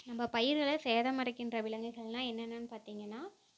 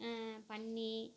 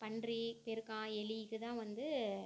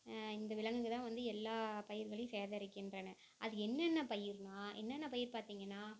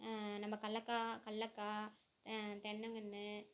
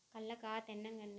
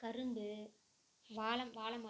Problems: constant background noise